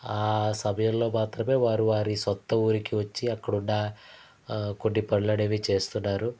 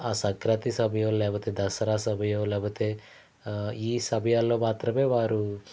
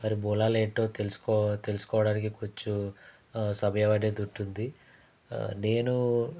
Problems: none marked